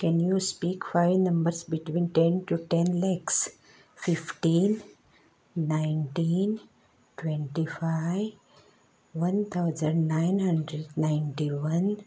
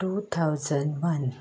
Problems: background sounds at intervals, background conversations at intervals